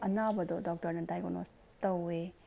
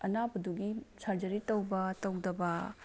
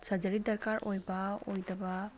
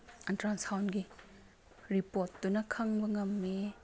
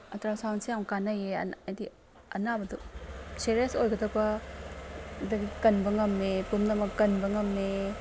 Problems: background sounds at intervals